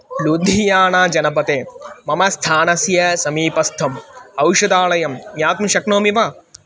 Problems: background sounds at intervals